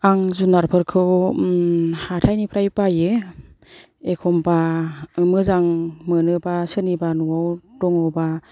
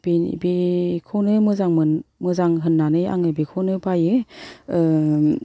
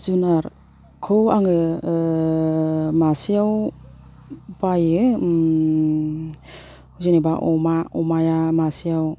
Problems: low volume